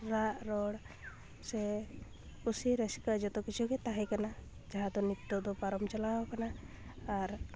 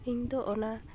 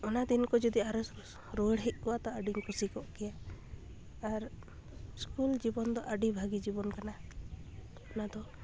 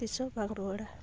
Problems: constant background noise, background conversations at intervals